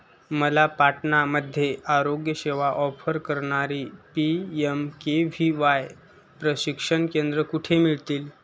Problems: none marked